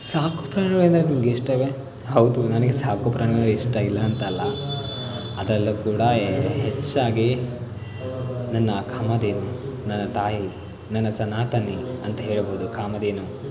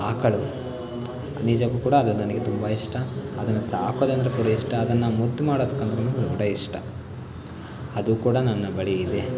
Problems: constant background noise